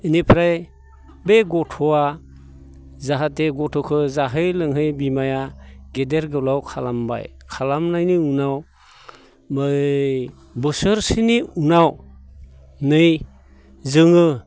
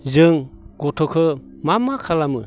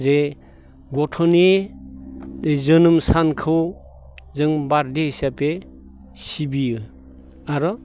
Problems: constant background noise